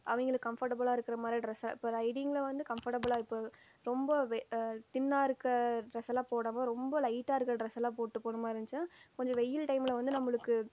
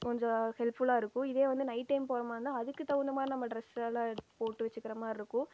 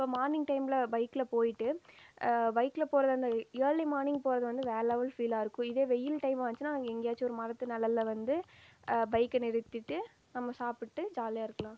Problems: none marked